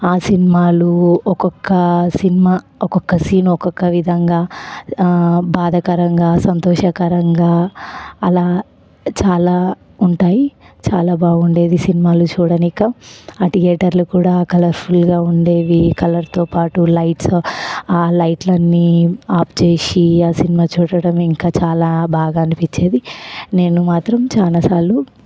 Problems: none marked